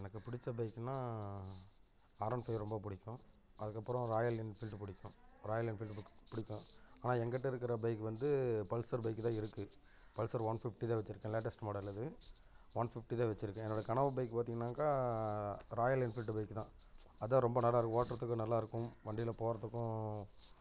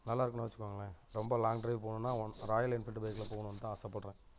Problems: background sounds at intervals